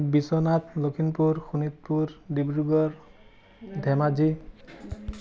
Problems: continuous background conversations